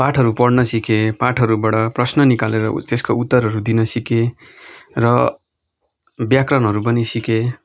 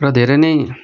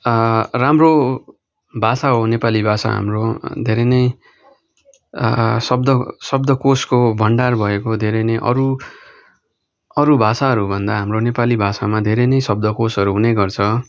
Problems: none marked